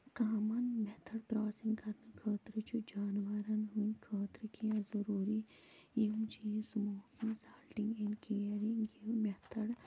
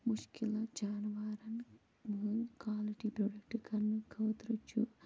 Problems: constant background noise, low volume